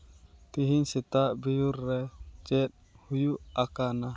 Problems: background sounds at intervals